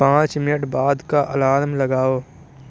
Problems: none marked